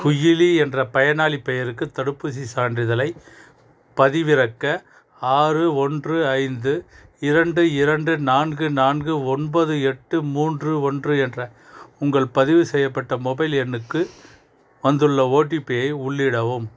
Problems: background conversations at intervals